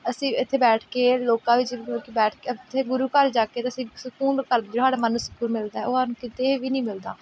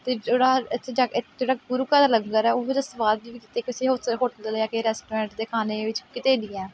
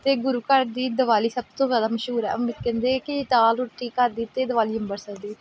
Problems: background sounds at intervals